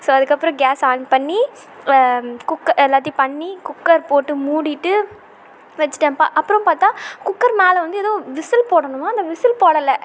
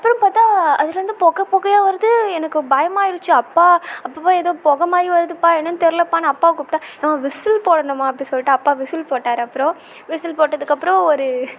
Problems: constant background noise